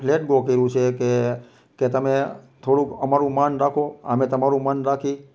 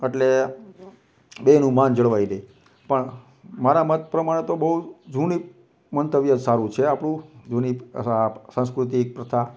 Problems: none marked